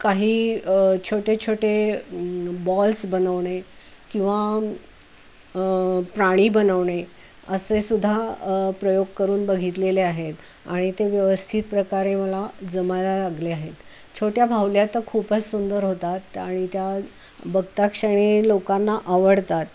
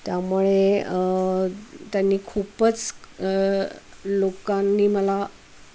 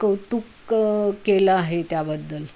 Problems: constant background noise